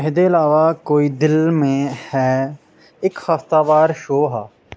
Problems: background sounds at intervals